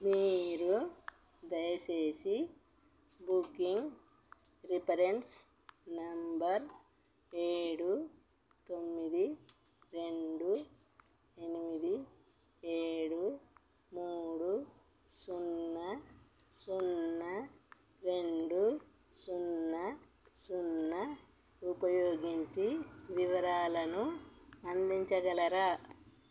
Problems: none marked